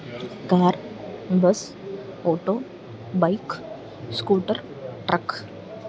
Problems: background sounds at intervals